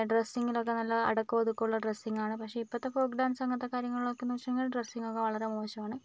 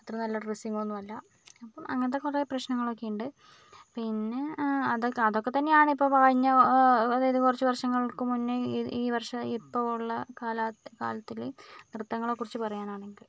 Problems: none marked